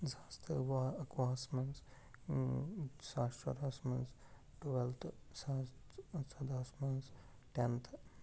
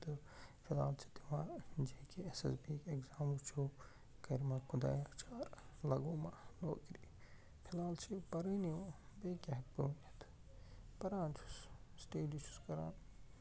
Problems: constant background noise, low volume